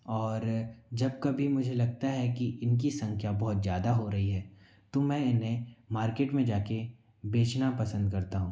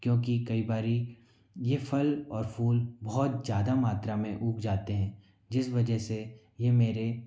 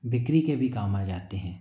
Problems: none marked